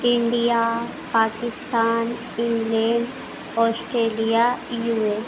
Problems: none marked